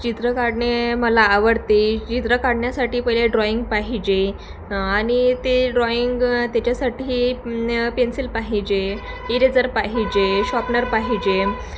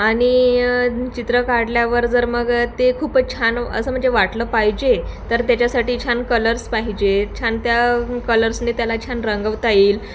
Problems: constant background noise